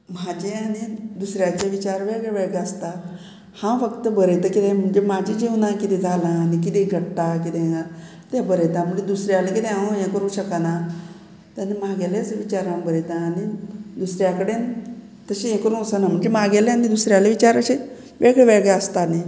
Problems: background conversations at intervals